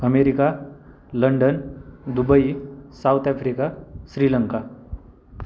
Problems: constant background noise